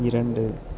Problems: continuous background conversations